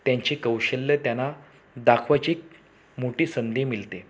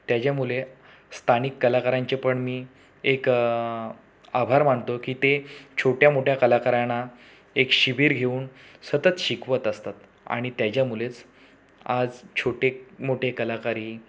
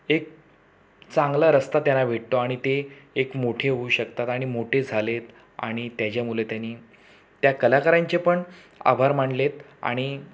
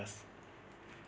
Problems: background sounds at intervals